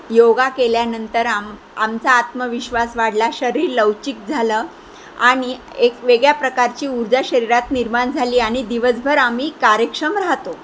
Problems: constant background noise